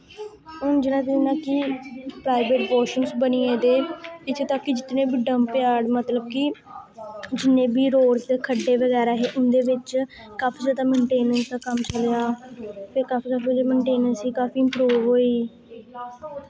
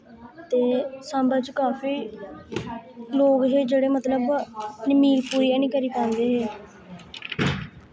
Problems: none marked